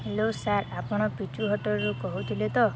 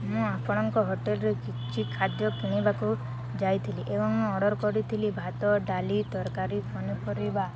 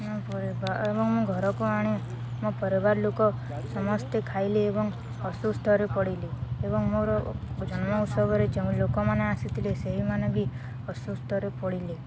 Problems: constant background noise, continuous background conversations